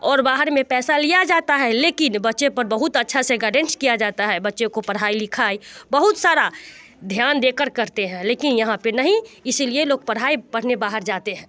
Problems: constant background noise, continuous background conversations